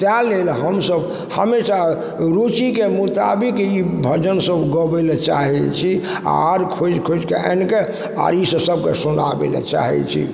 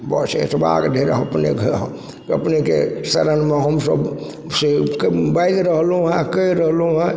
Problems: background sounds at intervals